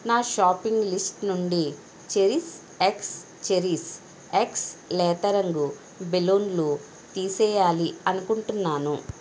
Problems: none marked